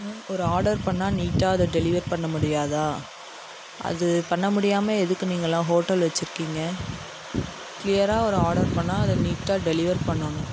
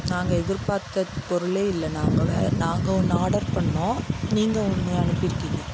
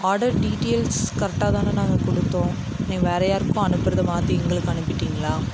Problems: constant background noise